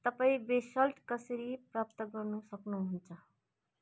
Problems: none marked